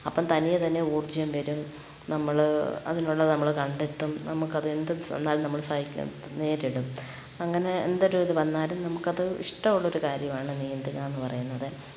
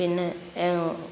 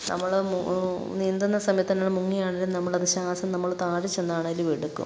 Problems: background sounds at intervals